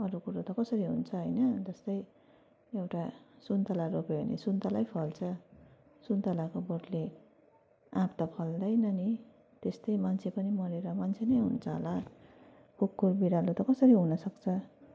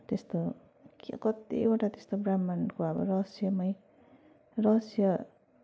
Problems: none marked